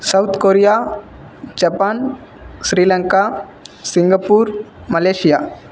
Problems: none marked